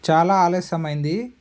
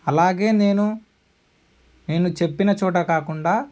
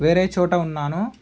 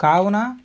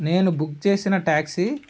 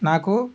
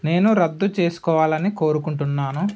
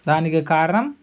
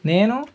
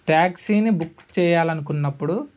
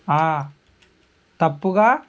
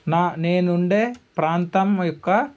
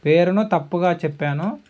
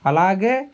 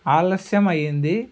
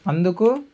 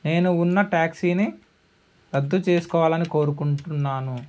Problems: background sounds at intervals